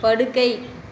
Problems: constant background noise